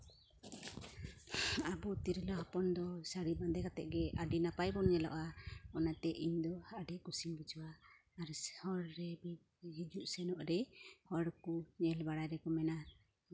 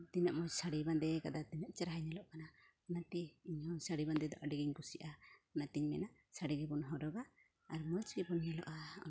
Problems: none marked